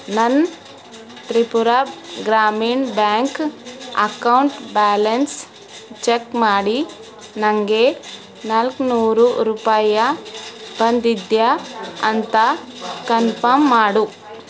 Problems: constant background noise